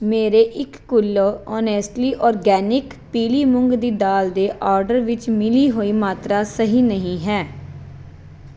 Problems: background sounds at intervals